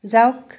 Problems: none marked